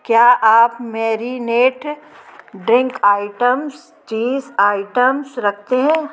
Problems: constant background noise